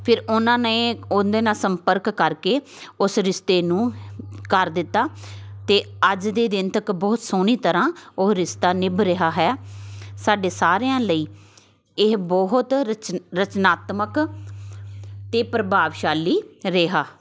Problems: constant background noise, continuous background conversations